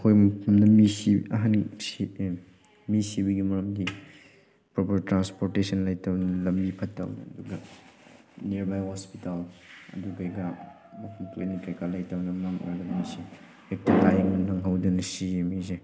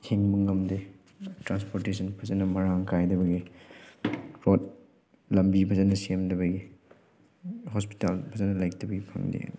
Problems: background sounds at intervals